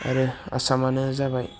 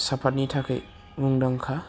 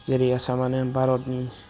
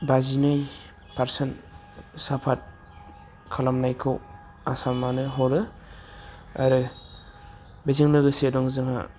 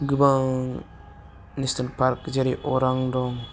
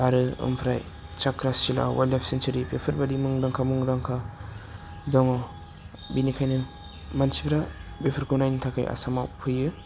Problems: low volume